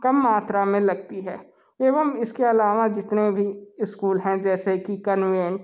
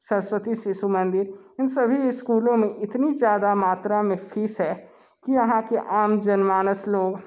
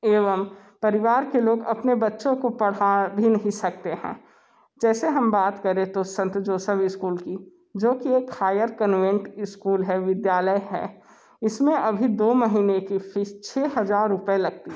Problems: constant background noise